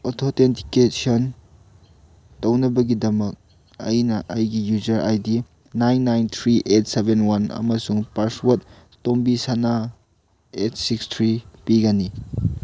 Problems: none marked